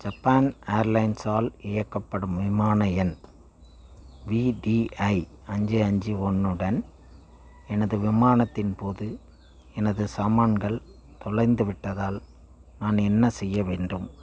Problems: none marked